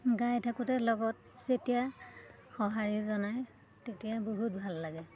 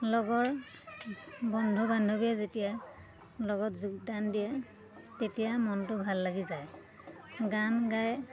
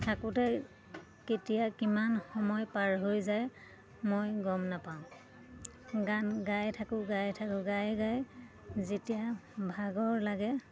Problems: constant background noise, continuous background conversations